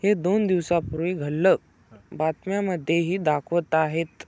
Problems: none marked